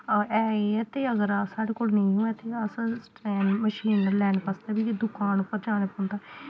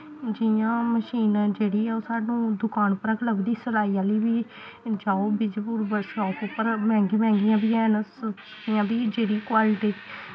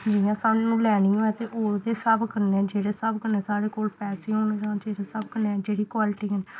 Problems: none marked